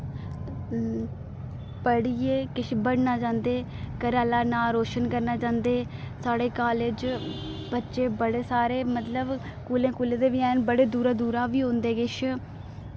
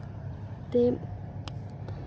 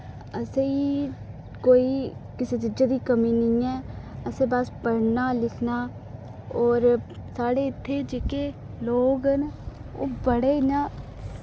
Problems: none marked